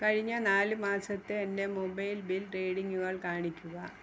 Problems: constant background noise